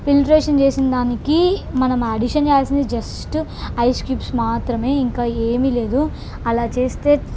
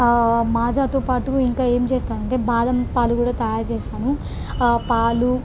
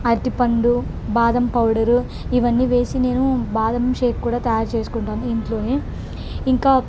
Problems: none marked